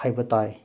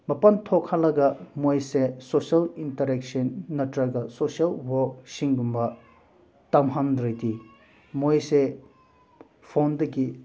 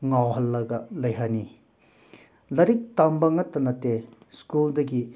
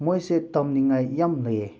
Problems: none marked